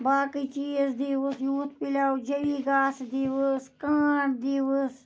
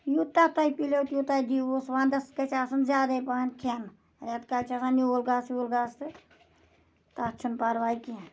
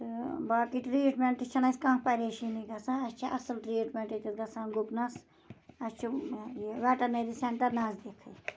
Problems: none marked